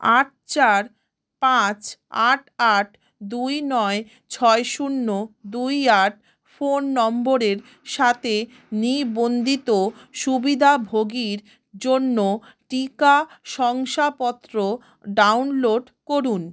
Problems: background sounds at intervals